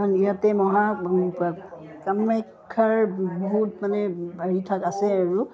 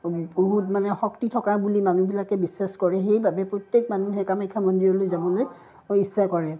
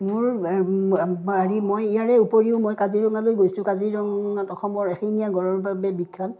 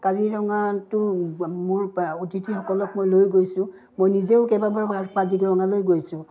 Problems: background sounds at intervals